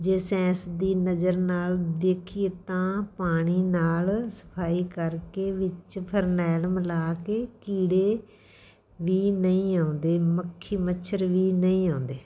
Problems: background sounds at intervals